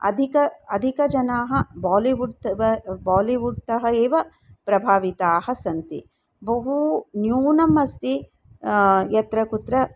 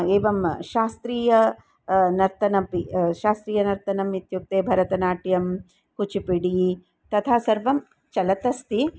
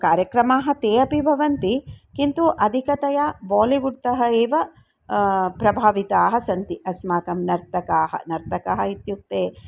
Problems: none marked